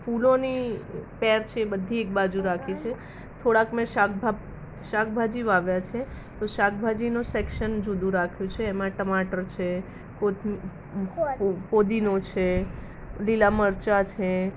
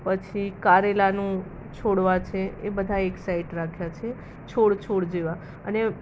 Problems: none marked